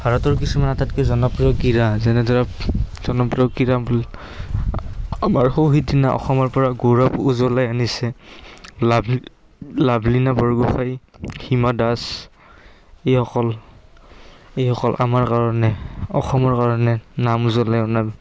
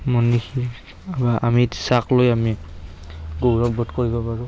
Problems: constant background noise, background conversations at intervals